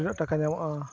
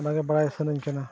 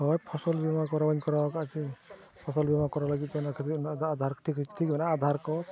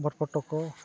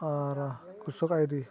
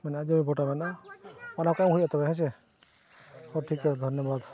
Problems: constant background noise, continuous background conversations